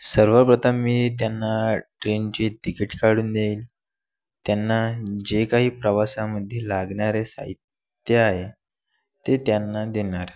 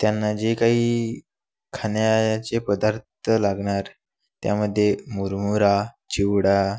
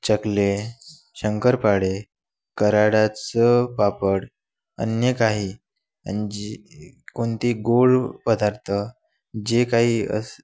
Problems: none marked